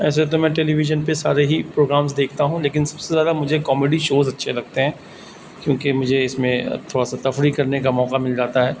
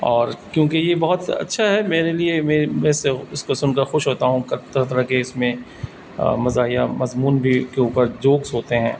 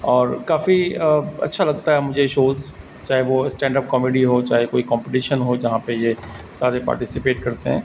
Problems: constant background noise